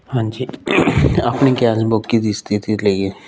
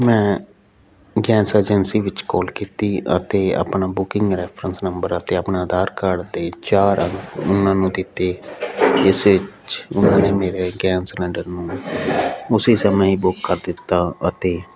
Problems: none marked